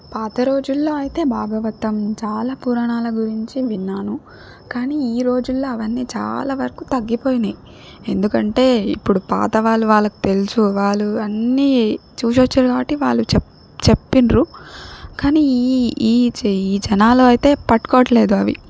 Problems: background sounds at intervals